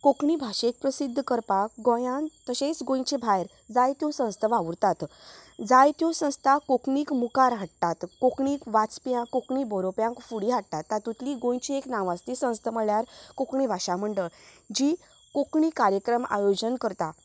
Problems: background sounds at intervals